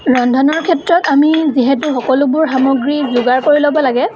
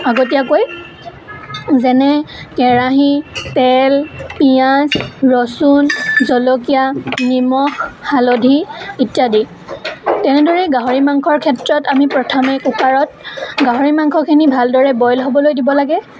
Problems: constant background noise, continuous background conversations